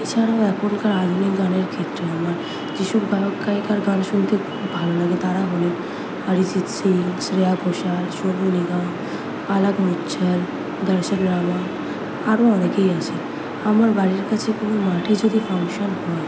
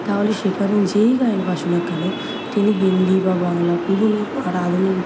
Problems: constant background noise